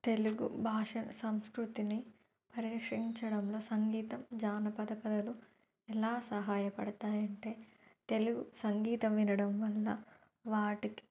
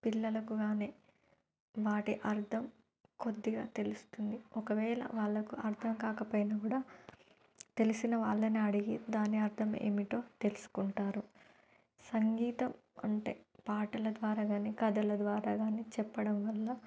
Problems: none marked